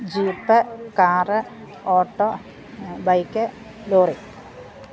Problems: background sounds at intervals